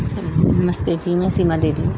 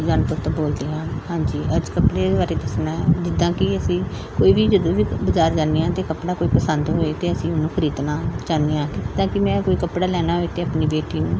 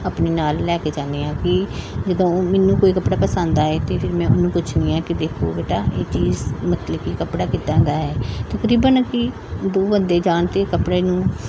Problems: background sounds at intervals, background conversations at intervals